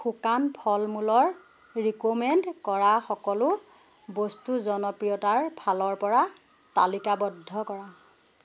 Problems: background sounds at intervals